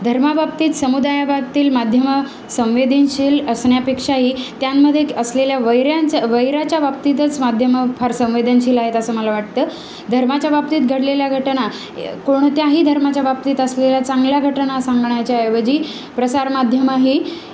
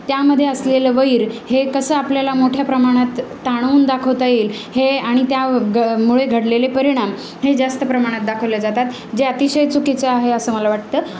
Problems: none marked